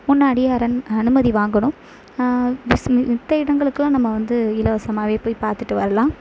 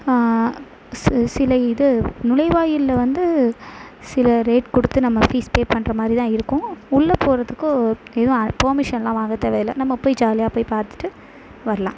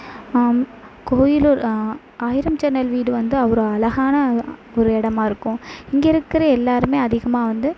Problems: constant background noise